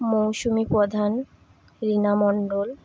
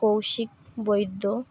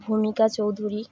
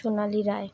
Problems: constant background noise